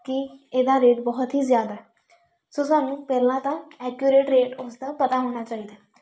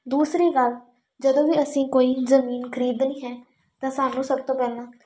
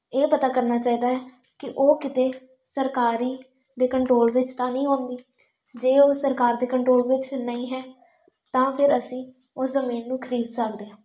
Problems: constant background noise